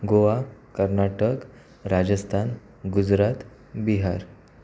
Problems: constant background noise